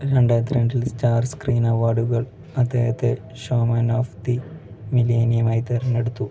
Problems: low volume